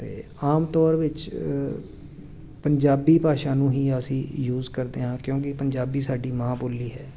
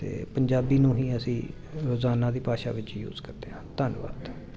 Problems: constant background noise